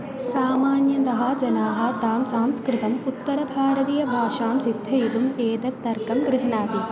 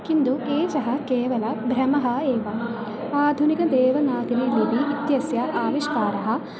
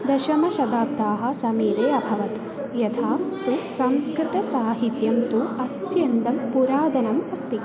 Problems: constant background noise, continuous background conversations